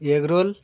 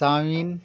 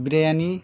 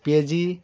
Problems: constant background noise